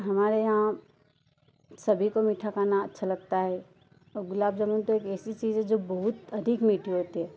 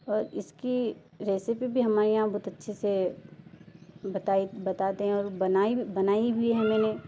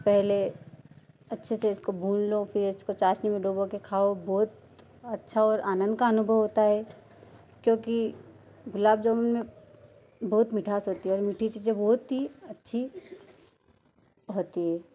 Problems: none marked